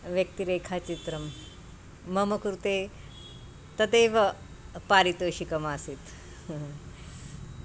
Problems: constant background noise